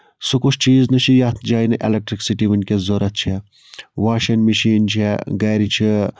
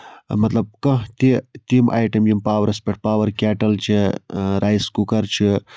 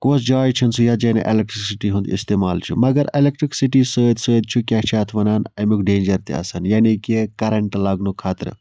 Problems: background sounds at intervals